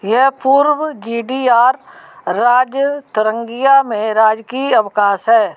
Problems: background sounds at intervals